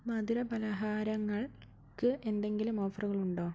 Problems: low volume